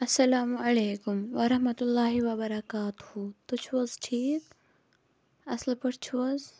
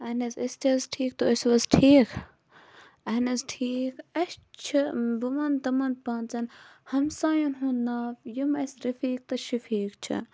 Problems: constant background noise